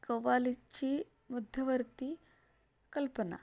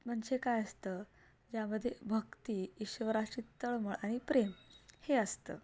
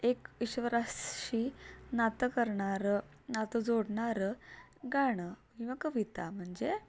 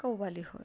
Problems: none marked